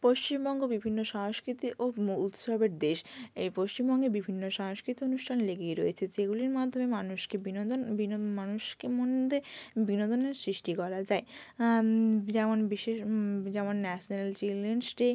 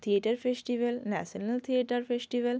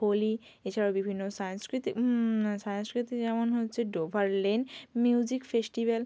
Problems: none marked